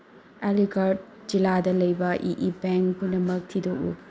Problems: low volume